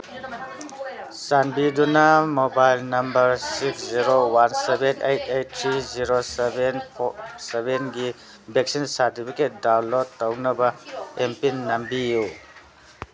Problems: constant background noise